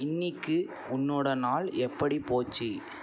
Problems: none marked